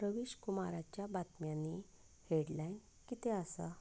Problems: background sounds at intervals